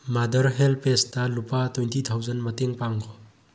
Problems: low volume